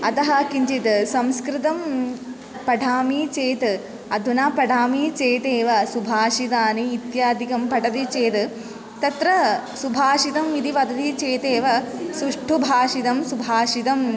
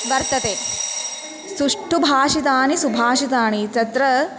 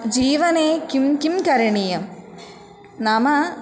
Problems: continuous background conversations